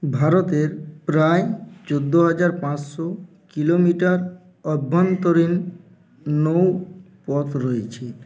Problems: background sounds at intervals